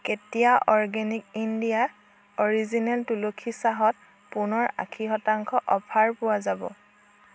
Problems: none marked